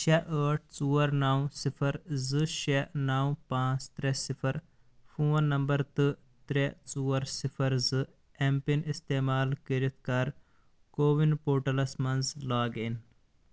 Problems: constant background noise